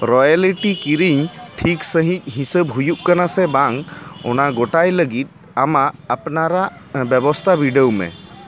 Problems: constant background noise, background conversations at intervals